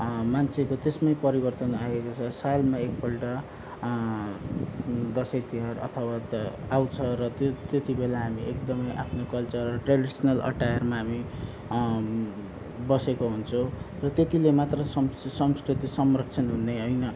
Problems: none marked